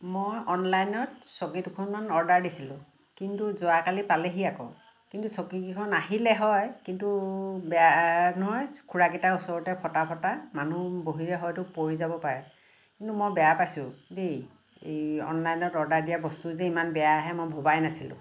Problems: constant background noise